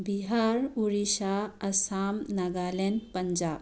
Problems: background sounds at intervals